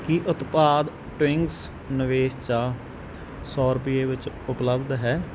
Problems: background sounds at intervals